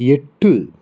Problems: constant background noise